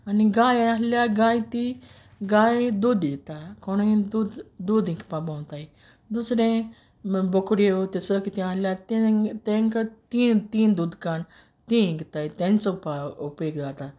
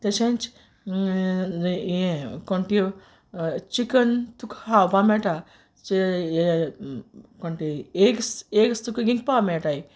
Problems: none marked